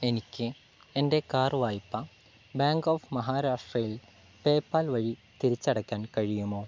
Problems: none marked